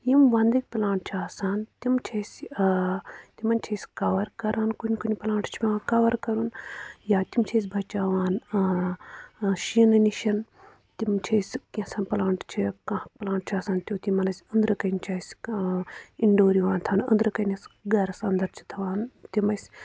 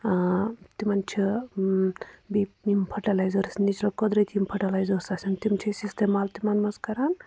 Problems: none marked